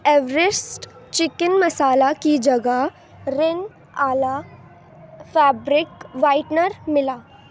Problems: background sounds at intervals, background conversations at intervals